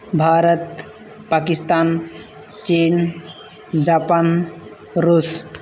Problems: none marked